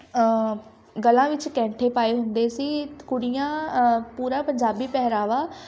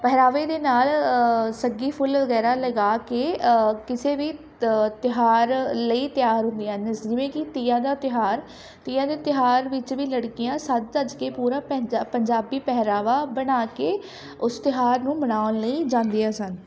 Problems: background conversations at intervals